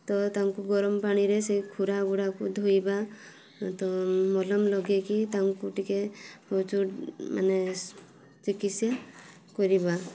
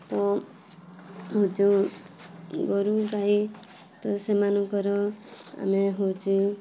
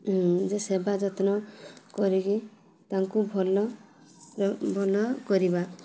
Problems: none marked